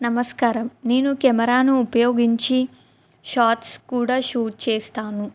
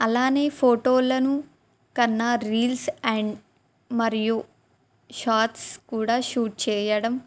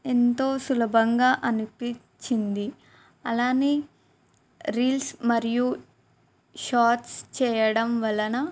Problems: none marked